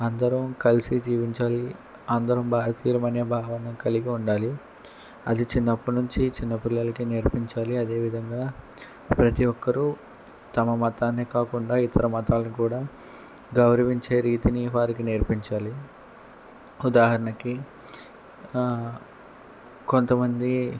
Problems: none marked